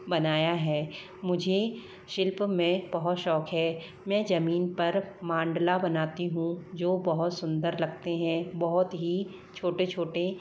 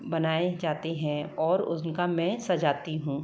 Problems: low volume